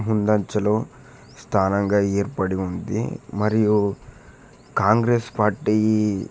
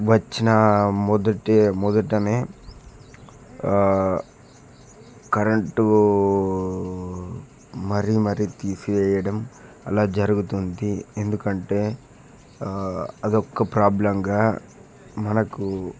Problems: background sounds at intervals